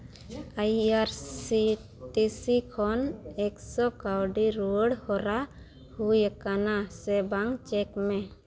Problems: none marked